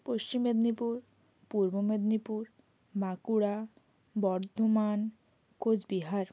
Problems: constant background noise